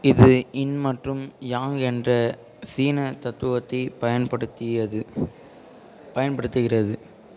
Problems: continuous background conversations